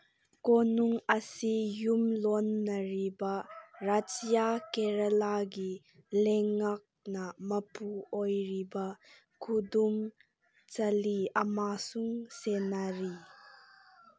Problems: background sounds at intervals